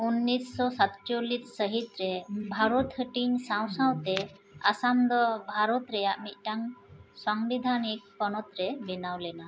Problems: none marked